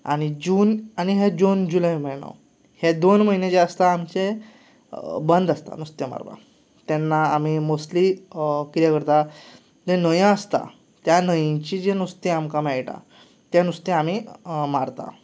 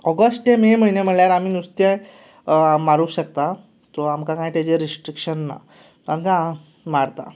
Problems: none marked